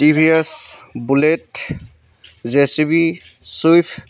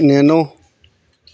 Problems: constant background noise, background conversations at intervals